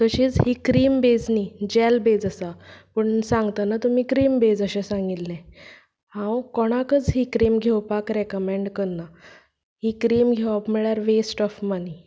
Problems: none marked